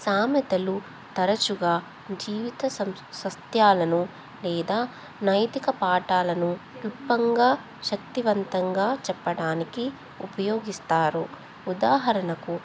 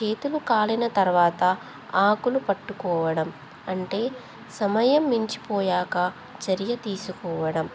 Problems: constant background noise